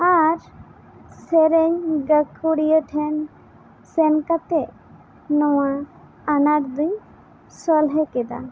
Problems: constant background noise